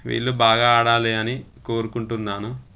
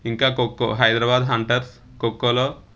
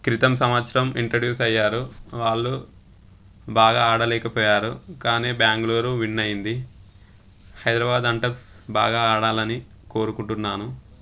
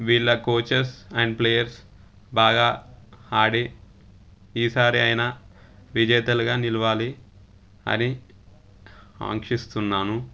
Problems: constant background noise